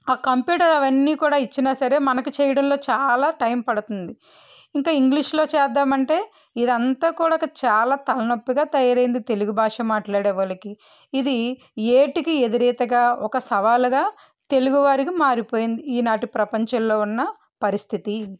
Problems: none marked